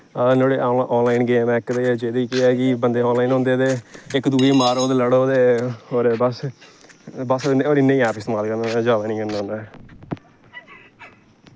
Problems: constant background noise